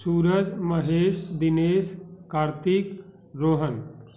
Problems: constant background noise